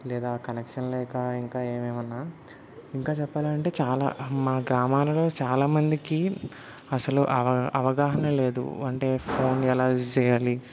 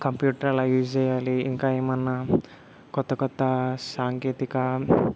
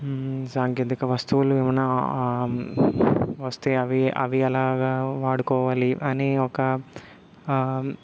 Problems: none marked